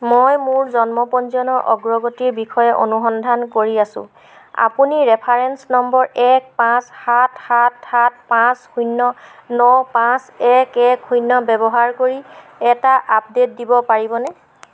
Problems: none marked